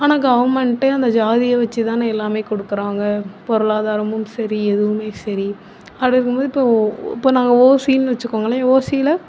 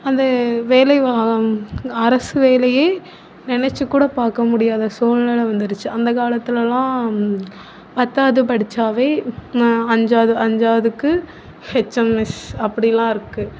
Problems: none marked